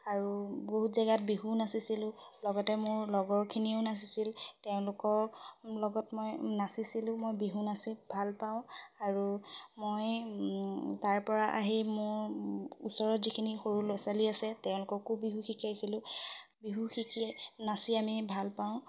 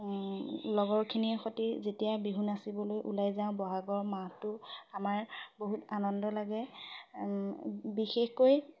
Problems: none marked